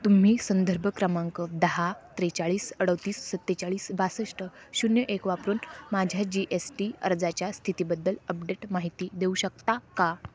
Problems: none marked